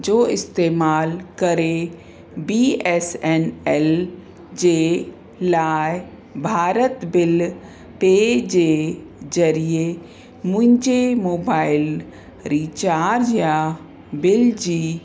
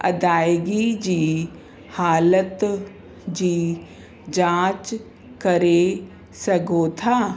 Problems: constant background noise, echo